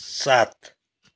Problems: none marked